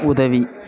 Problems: continuous background conversations